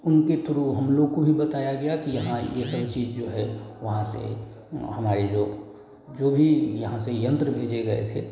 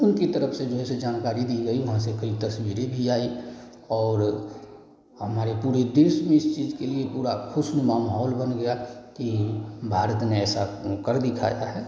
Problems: none marked